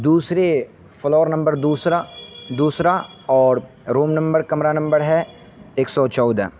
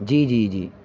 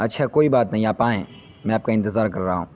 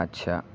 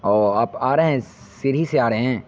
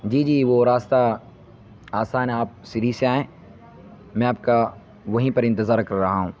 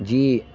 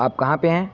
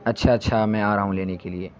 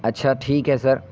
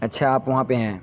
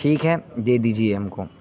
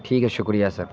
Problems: constant background noise